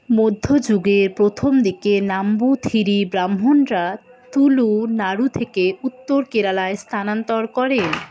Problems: background conversations at intervals